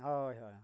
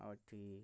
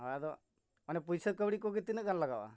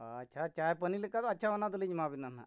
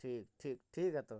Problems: none marked